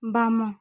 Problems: background sounds at intervals